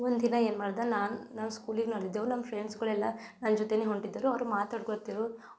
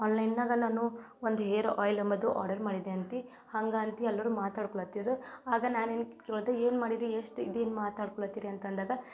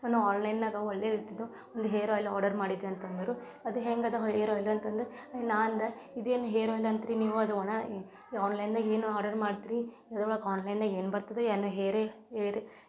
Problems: none marked